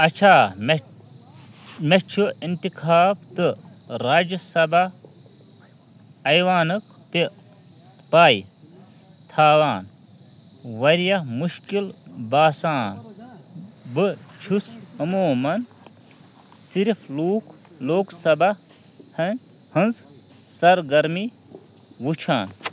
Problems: constant background noise, continuous background conversations